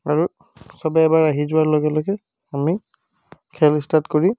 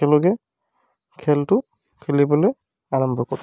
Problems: background sounds at intervals